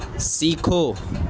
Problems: constant background noise